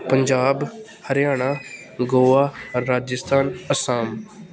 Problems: constant background noise